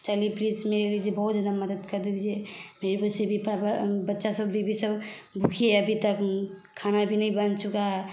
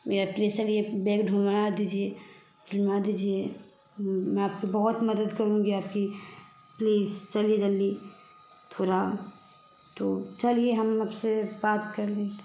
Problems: background sounds at intervals